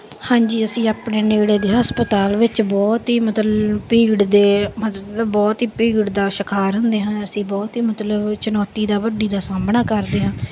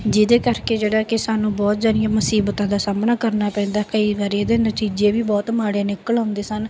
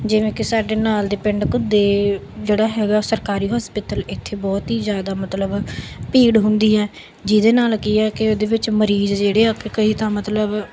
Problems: background sounds at intervals